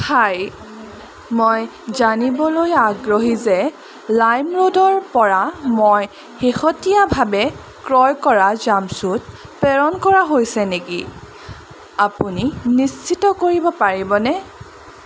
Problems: constant background noise, background conversations at intervals